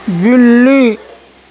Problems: constant background noise